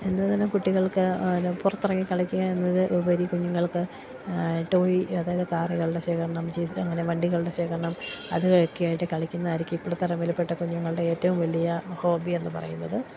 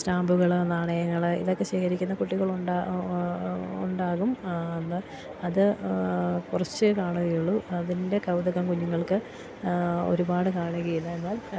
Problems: constant background noise, low volume